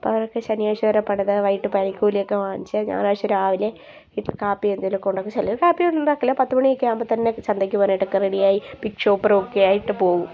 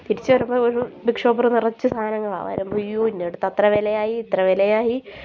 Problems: background conversations at intervals